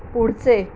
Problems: constant background noise